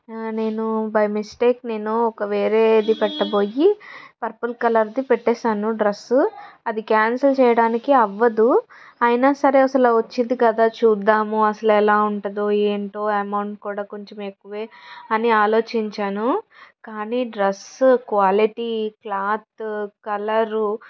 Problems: background sounds at intervals